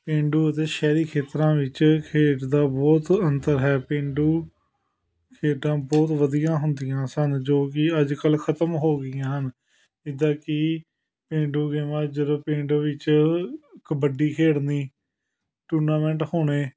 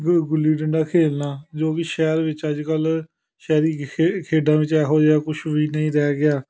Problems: background conversations at intervals